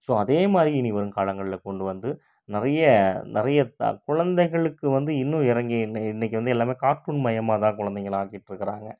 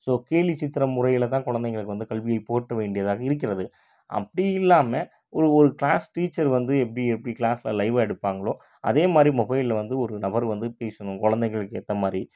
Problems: none marked